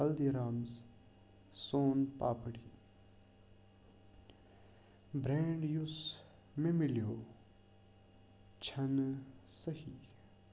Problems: constant background noise, low volume